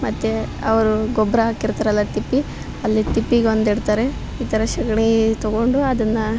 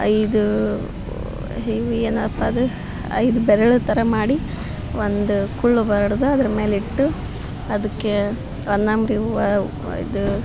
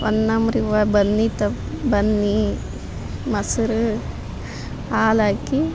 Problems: none marked